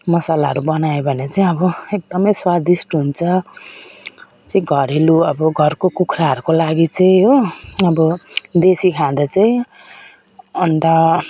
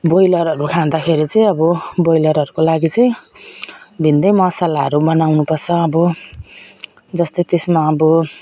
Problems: none marked